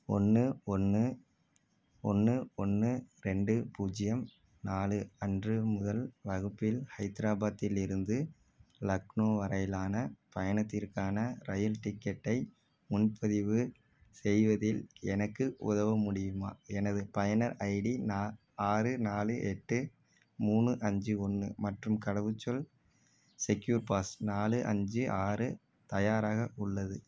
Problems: none marked